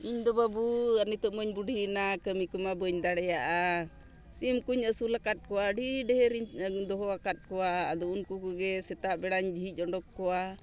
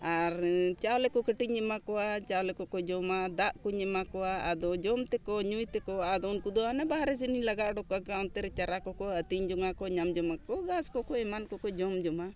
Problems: none marked